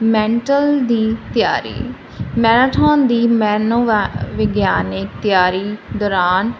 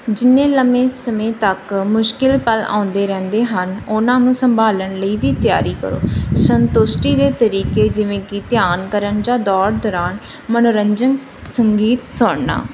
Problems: none marked